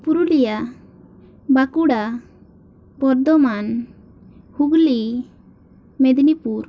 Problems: none marked